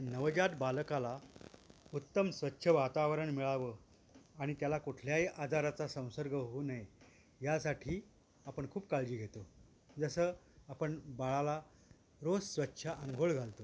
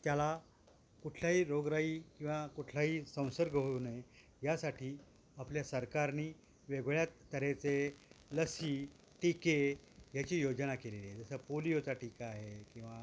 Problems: constant background noise